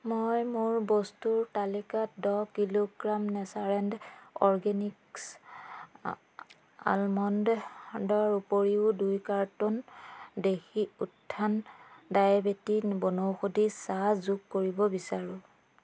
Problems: background sounds at intervals